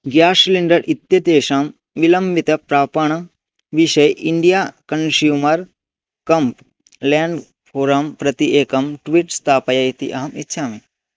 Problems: constant background noise